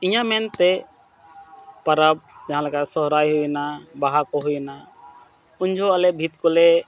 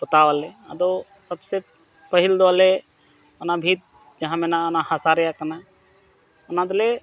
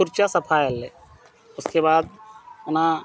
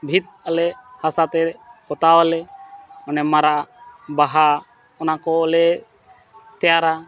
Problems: none marked